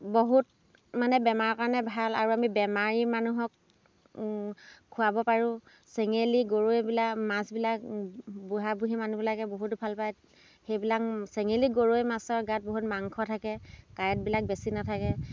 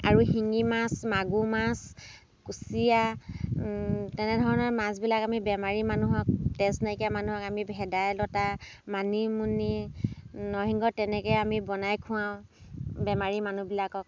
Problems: none marked